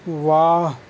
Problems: constant background noise